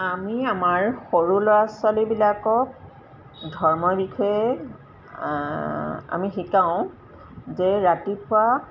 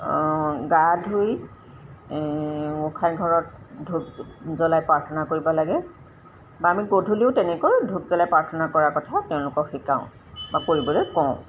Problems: constant background noise